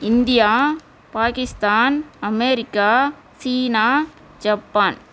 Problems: none marked